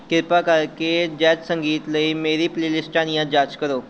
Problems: background sounds at intervals